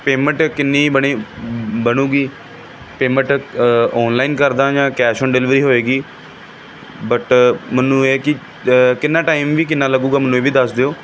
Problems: continuous background conversations